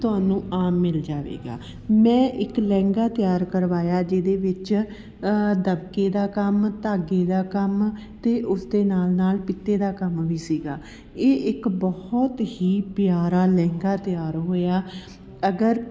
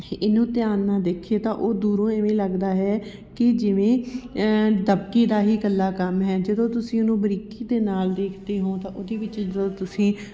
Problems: continuous background conversations